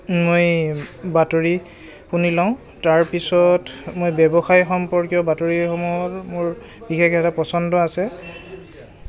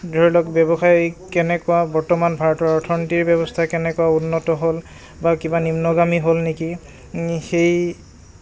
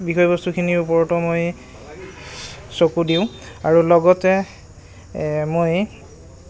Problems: none marked